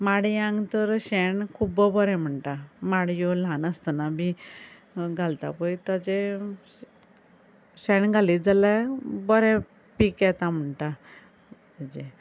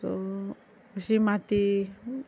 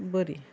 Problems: none marked